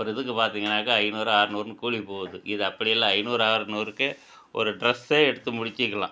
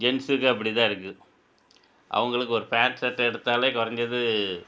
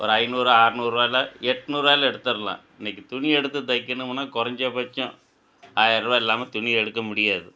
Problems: none marked